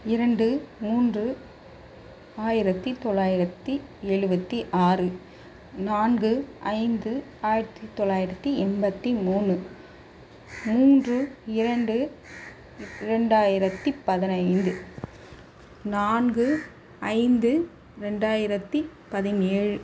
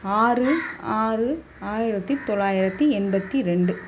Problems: constant background noise